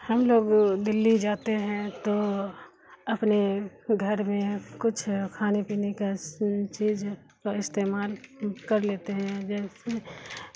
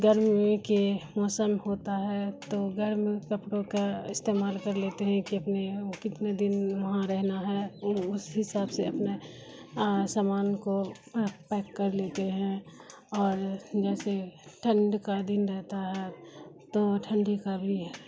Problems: constant background noise